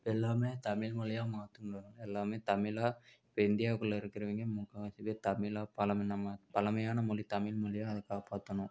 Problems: none marked